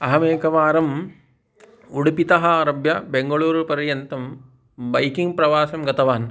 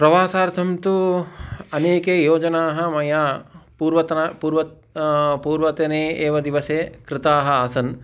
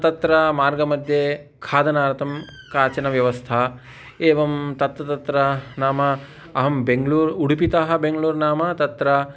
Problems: background sounds at intervals